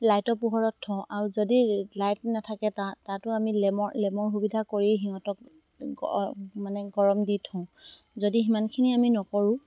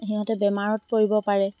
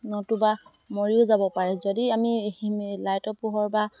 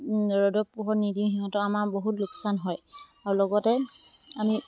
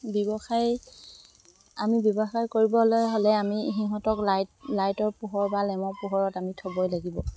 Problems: constant background noise